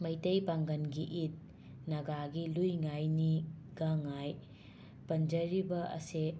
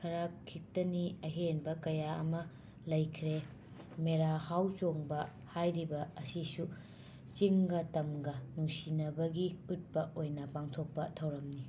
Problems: constant background noise